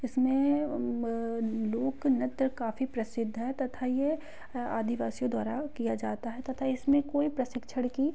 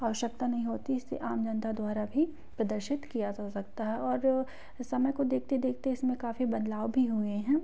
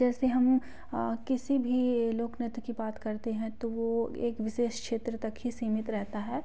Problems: background conversations at intervals